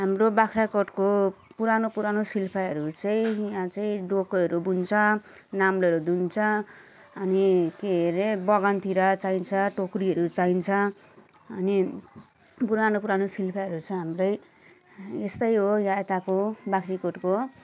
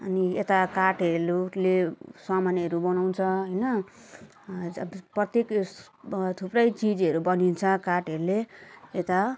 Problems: none marked